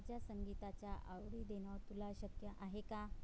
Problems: background sounds at intervals, low volume